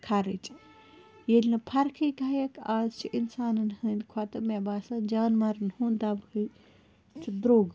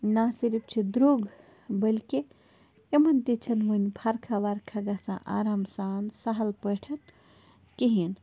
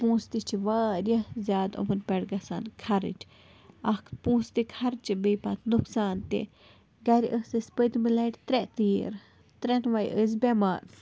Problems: constant background noise